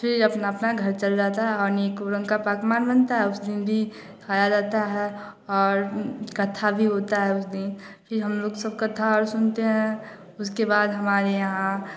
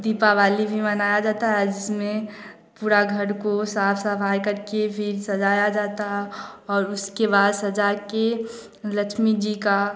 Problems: none marked